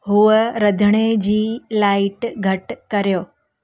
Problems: constant background noise